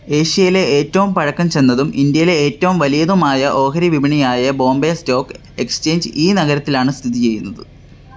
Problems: none marked